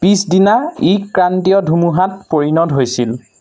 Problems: none marked